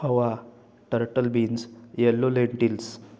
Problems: constant background noise, background conversations at intervals